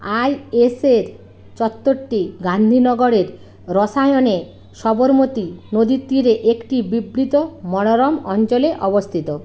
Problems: none marked